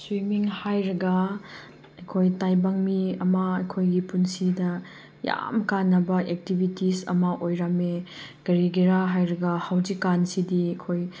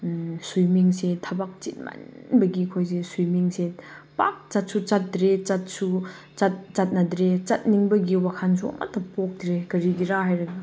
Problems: background sounds at intervals